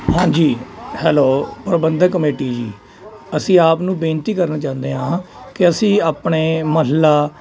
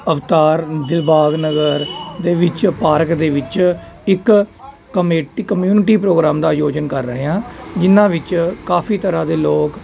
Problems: constant background noise